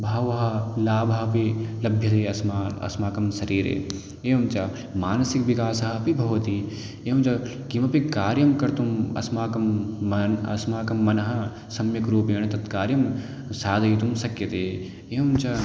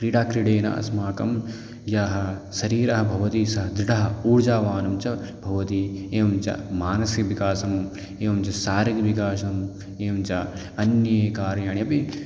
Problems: none marked